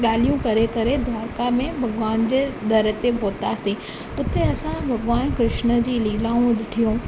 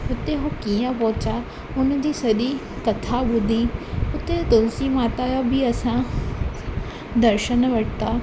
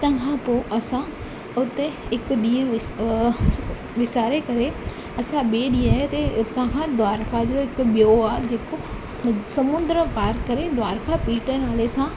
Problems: constant background noise